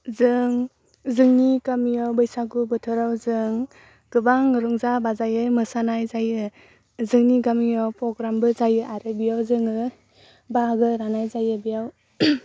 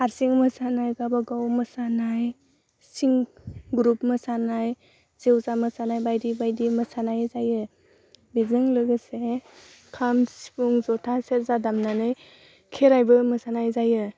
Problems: none marked